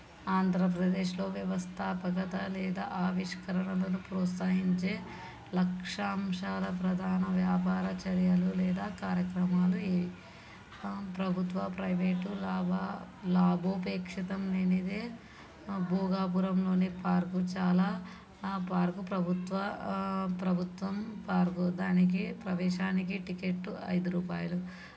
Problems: background sounds at intervals